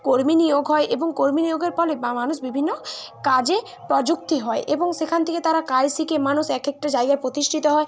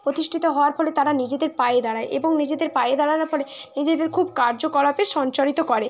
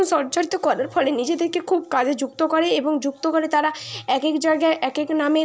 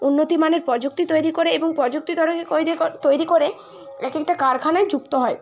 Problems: constant background noise, continuous background conversations